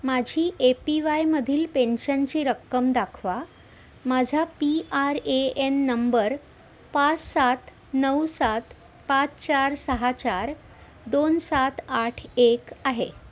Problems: none marked